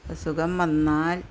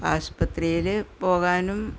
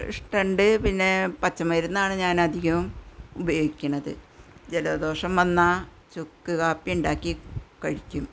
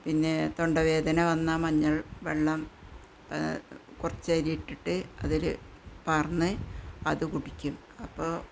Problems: continuous background conversations